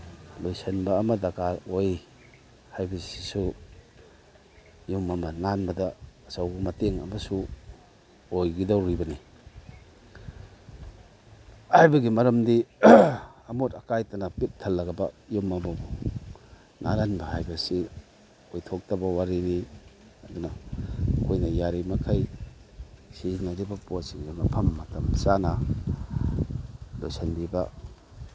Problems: none marked